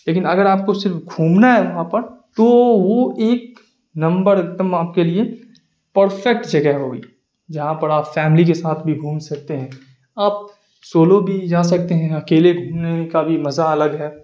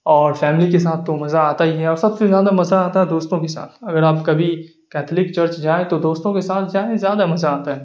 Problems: none marked